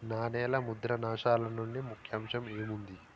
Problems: constant background noise